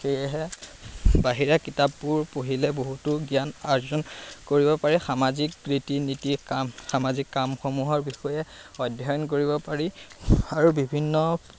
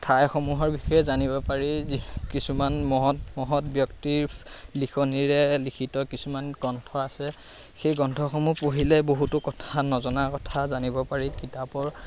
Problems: constant background noise